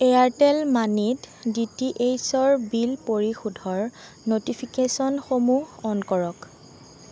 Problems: constant background noise